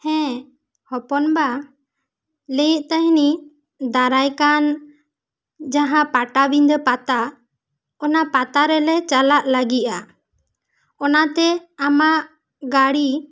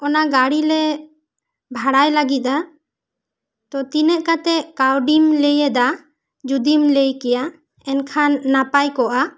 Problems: none marked